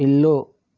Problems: none marked